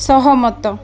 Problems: constant background noise, continuous background conversations